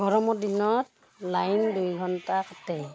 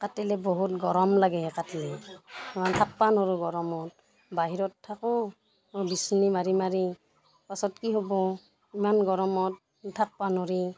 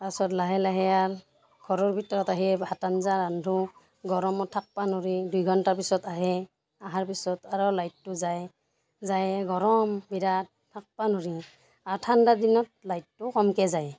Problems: background sounds at intervals, background conversations at intervals